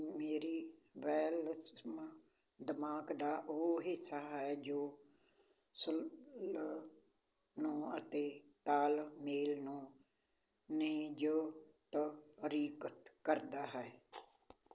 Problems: background sounds at intervals